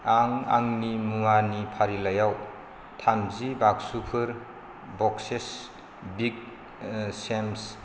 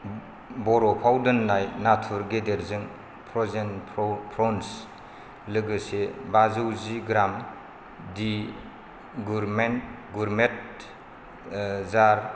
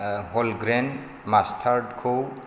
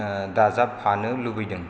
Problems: none marked